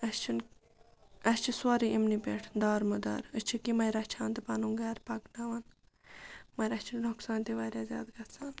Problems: background sounds at intervals, background conversations at intervals